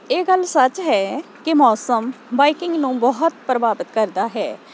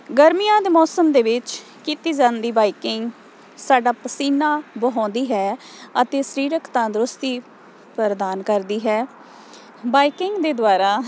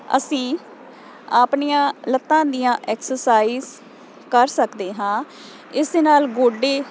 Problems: none marked